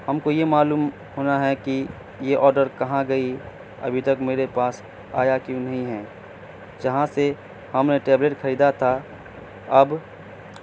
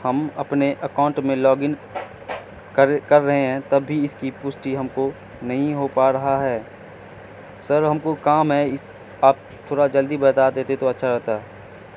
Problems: constant background noise